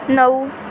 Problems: constant background noise